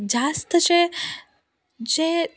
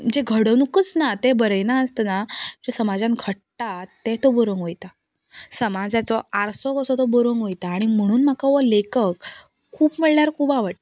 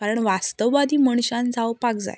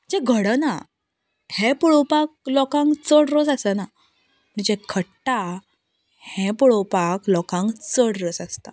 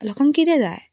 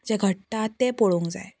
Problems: none marked